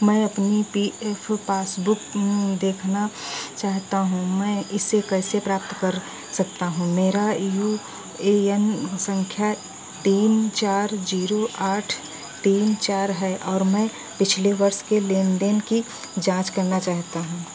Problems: none marked